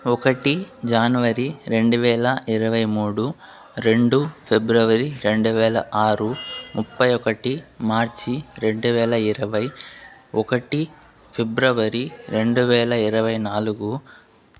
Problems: constant background noise